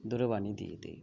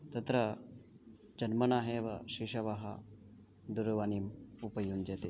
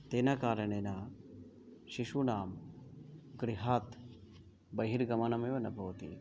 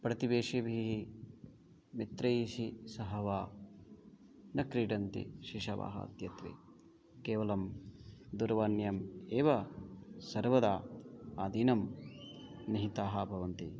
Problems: background sounds at intervals, background conversations at intervals